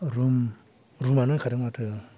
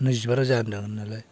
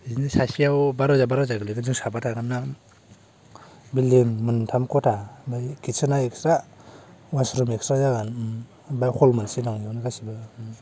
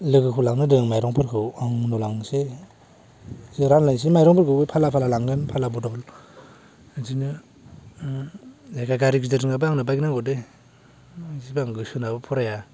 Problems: low volume